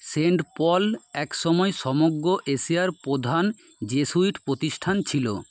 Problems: constant background noise